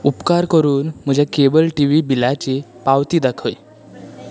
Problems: constant background noise